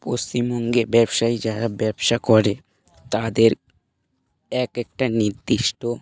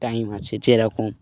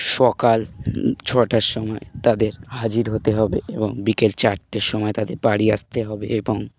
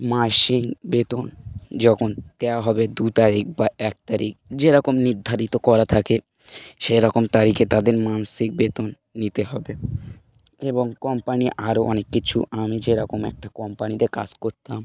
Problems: none marked